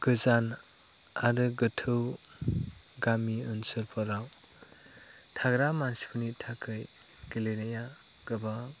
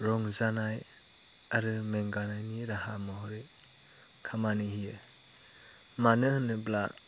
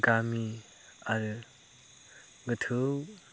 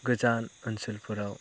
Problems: none marked